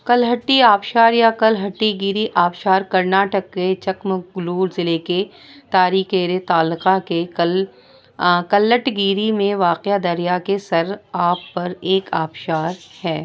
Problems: background sounds at intervals